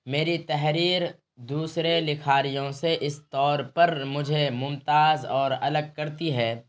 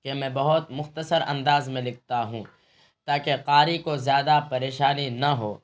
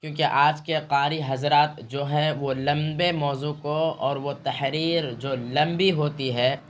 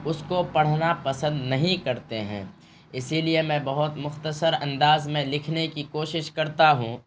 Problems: constant background noise